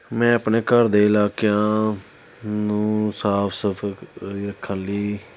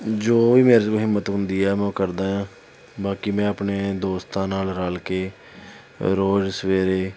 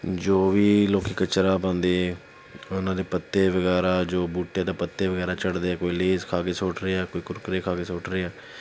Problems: none marked